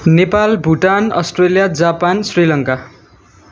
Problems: none marked